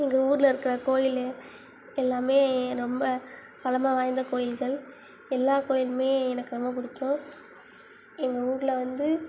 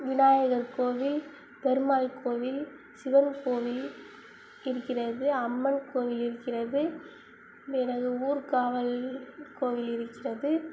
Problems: none marked